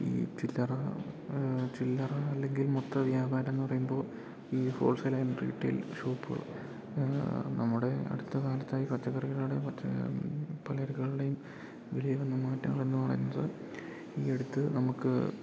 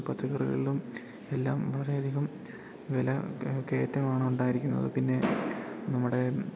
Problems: none marked